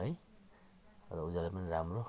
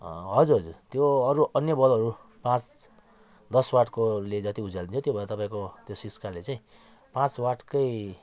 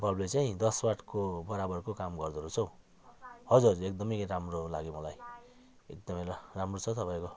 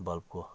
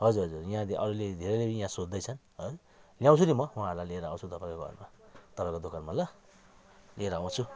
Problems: continuous background conversations